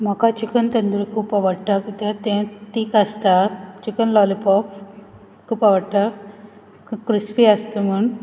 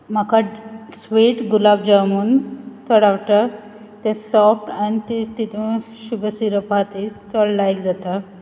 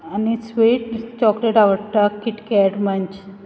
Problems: background sounds at intervals